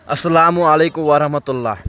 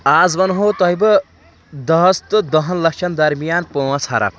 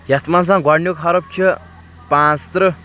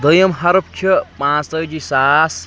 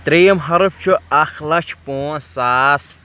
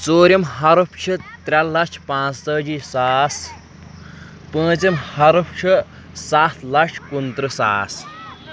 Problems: constant background noise, background conversations at intervals